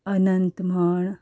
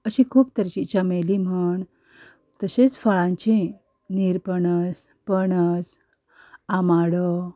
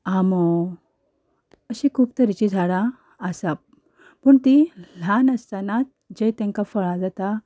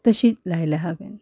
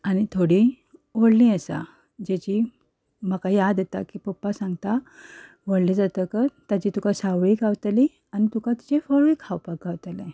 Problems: background sounds at intervals, background conversations at intervals